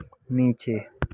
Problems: background sounds at intervals